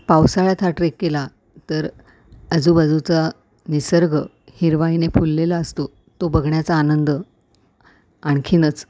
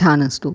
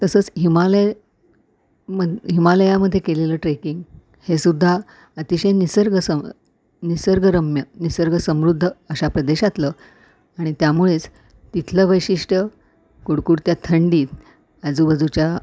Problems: background sounds at intervals